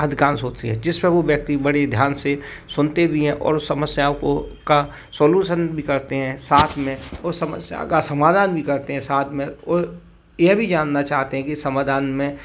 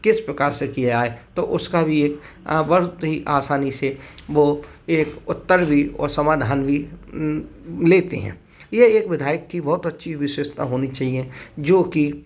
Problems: constant background noise, background conversations at intervals